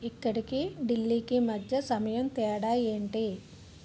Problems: none marked